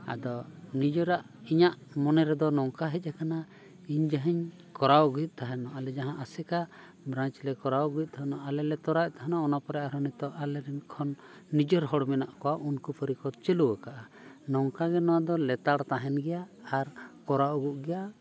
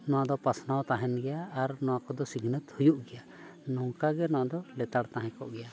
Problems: background sounds at intervals, continuous background conversations